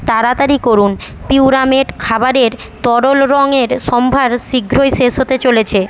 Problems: constant background noise